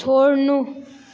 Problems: none marked